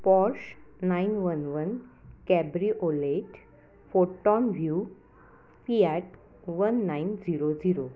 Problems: none marked